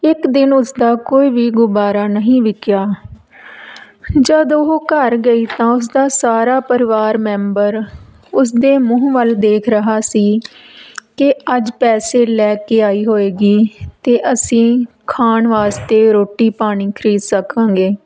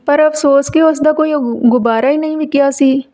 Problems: background conversations at intervals